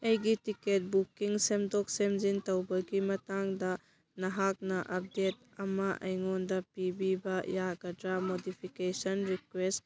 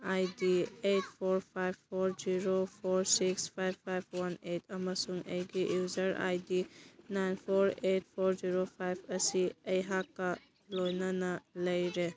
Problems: background sounds at intervals